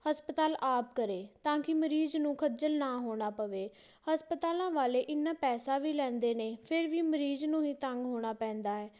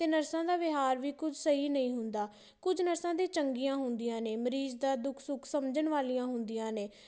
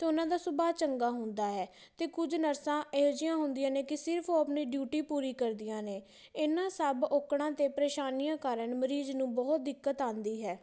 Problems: background sounds at intervals